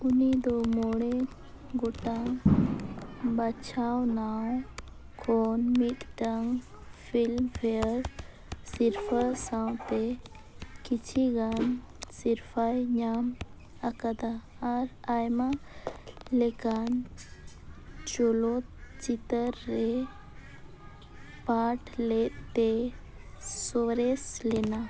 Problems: constant background noise, continuous background conversations